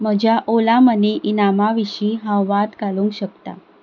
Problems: none marked